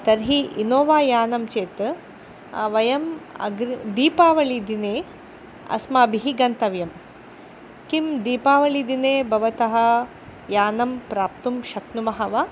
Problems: constant background noise